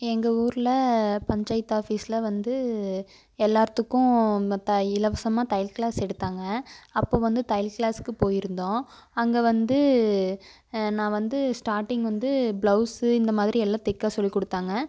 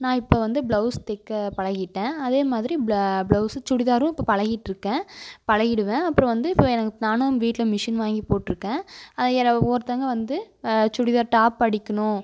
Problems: constant background noise